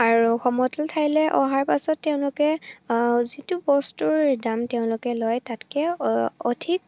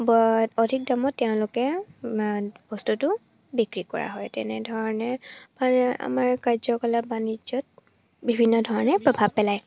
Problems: none marked